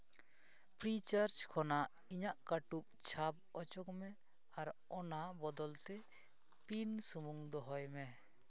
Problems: background sounds at intervals